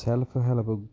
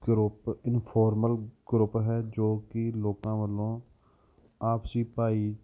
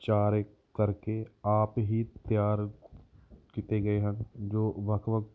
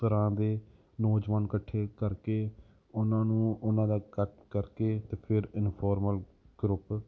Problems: background sounds at intervals